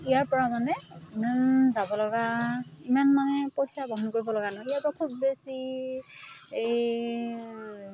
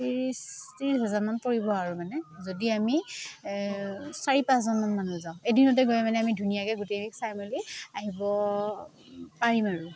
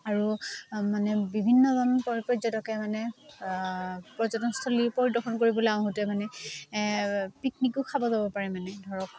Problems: none marked